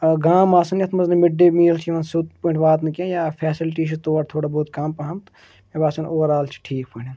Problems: none marked